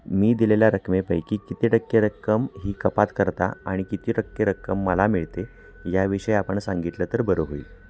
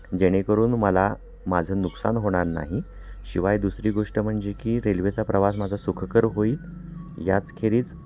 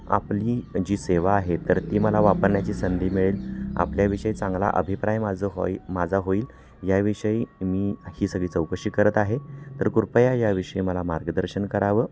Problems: constant background noise, continuous background conversations